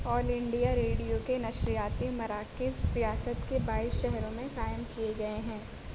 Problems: constant background noise